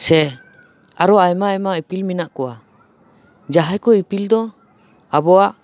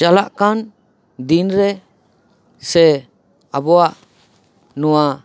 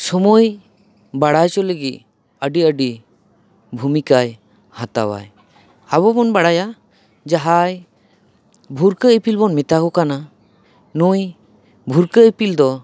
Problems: none marked